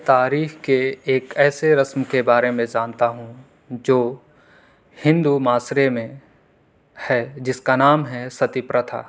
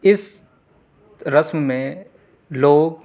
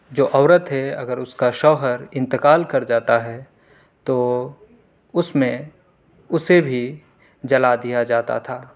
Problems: none marked